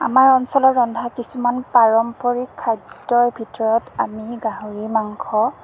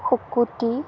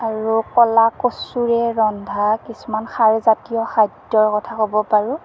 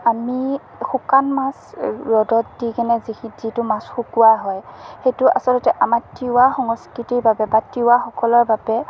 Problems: constant background noise, low volume